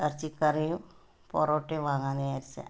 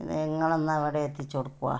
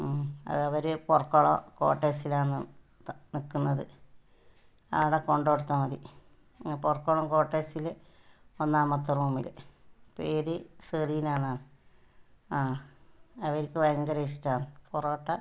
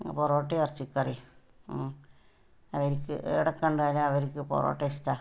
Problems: low volume